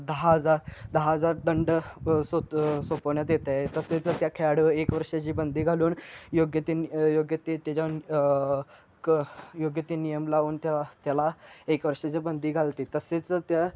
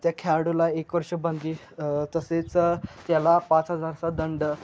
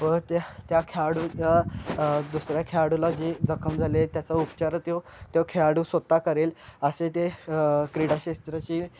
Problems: none marked